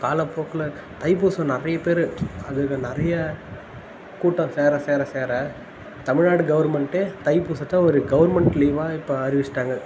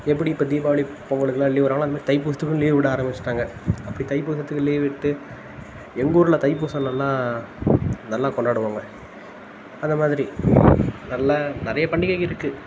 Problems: constant background noise